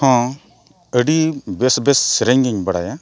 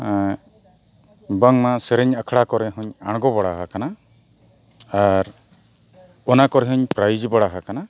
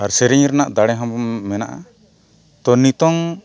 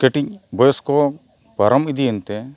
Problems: none marked